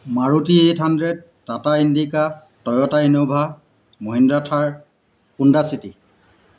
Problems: constant background noise